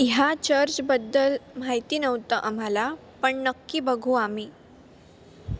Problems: none marked